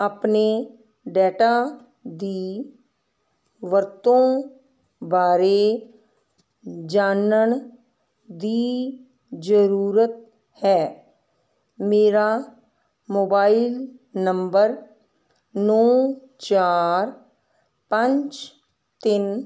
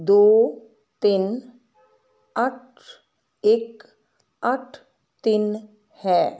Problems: constant background noise